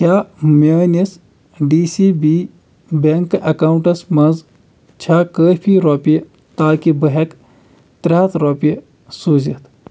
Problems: constant background noise